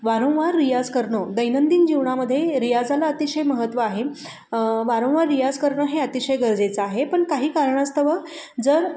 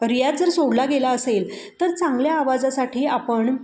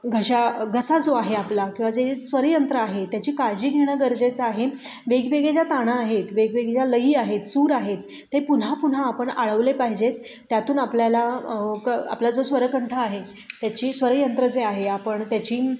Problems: constant background noise, echo